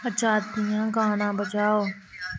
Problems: constant background noise